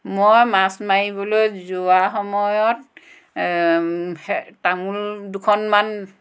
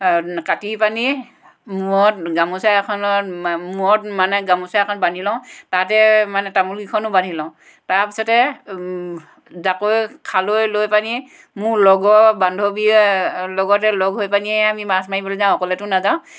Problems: none marked